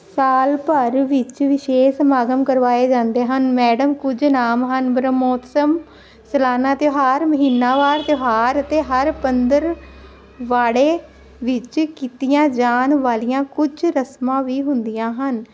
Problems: none marked